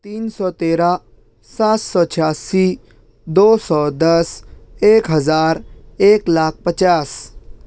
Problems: none marked